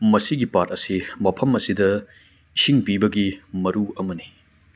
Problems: none marked